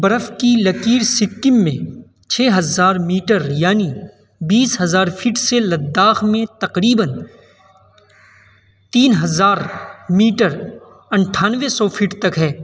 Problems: constant background noise